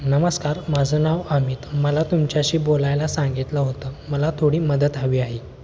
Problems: none marked